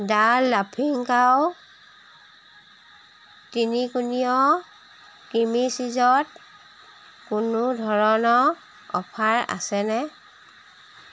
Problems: constant background noise